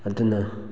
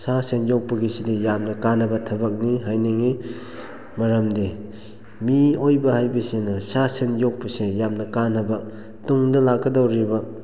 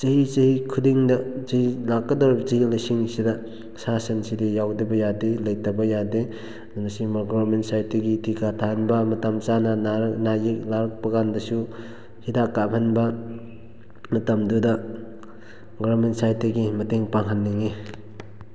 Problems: low volume